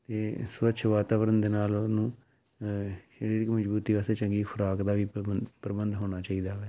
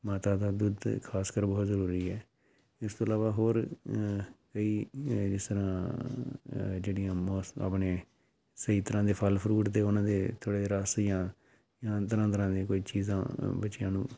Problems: background sounds at intervals